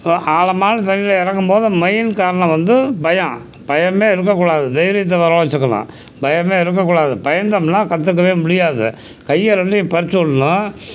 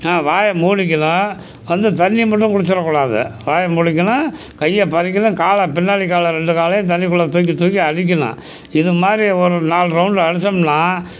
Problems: constant background noise